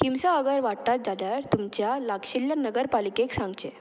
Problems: background sounds at intervals, background conversations at intervals